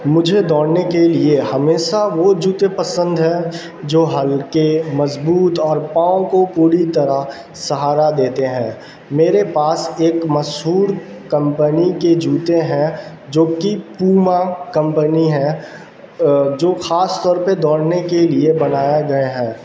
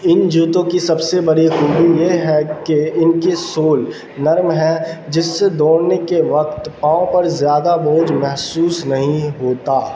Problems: constant background noise